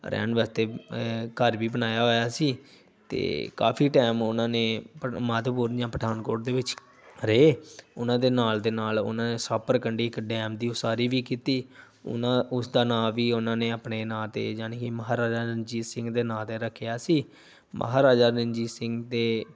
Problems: background sounds at intervals